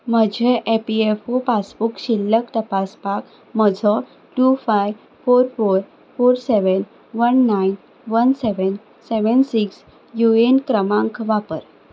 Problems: background sounds at intervals